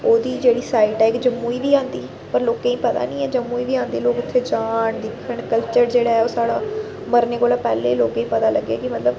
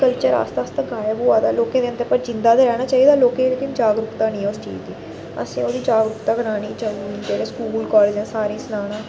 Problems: none marked